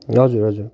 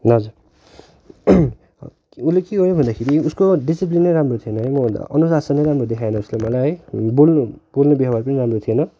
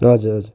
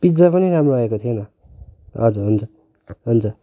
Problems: background sounds at intervals